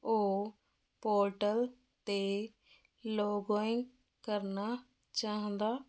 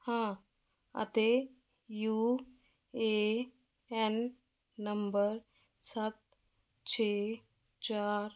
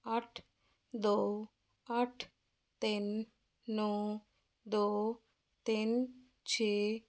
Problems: none marked